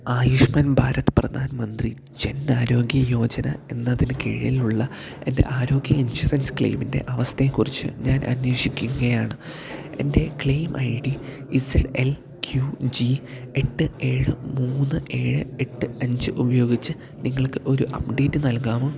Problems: low volume